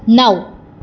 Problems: none marked